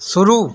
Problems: constant background noise